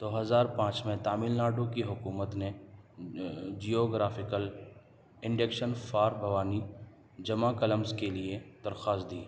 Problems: none marked